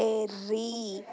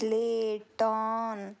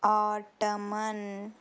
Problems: none marked